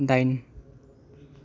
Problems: none marked